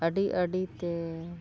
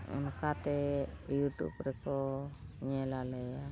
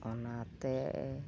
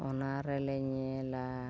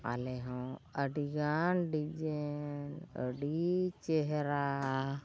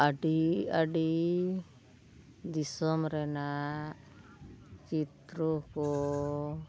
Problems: constant background noise, low volume